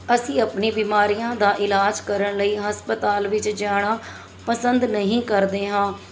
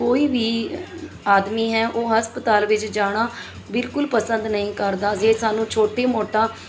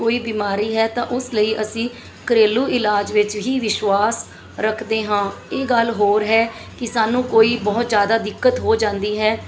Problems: background sounds at intervals, background conversations at intervals